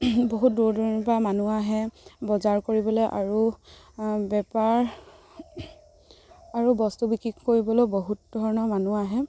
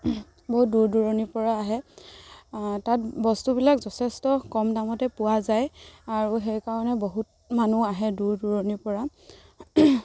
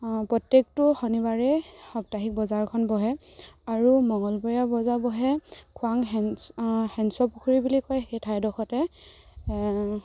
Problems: constant background noise